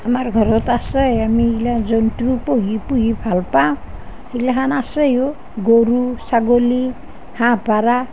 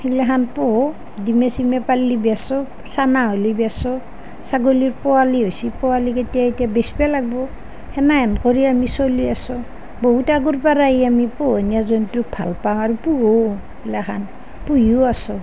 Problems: none marked